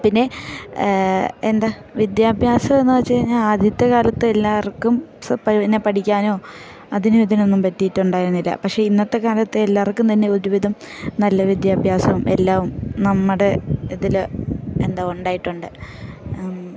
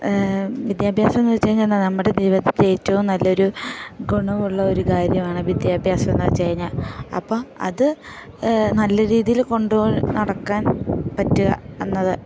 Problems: background sounds at intervals